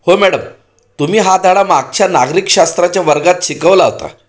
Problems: none marked